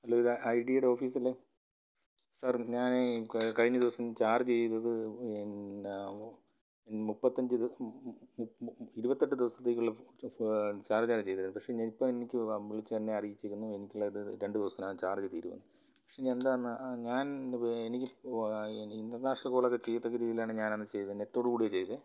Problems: low volume